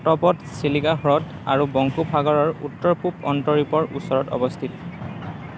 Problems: continuous background conversations